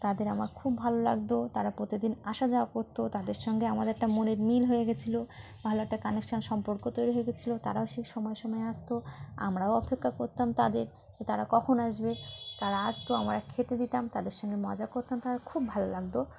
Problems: constant background noise